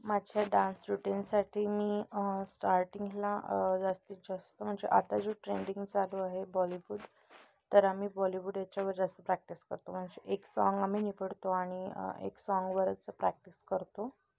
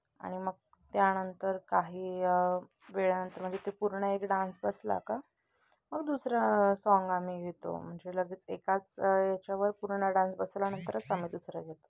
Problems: none marked